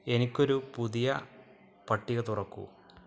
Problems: none marked